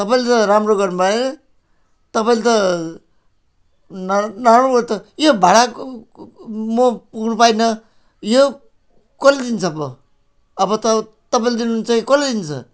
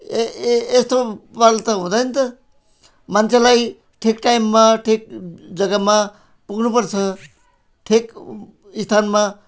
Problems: background sounds at intervals